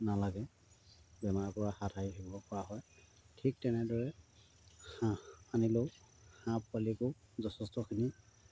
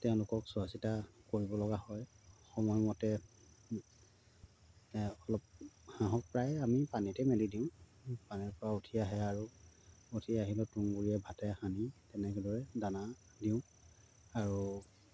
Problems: low volume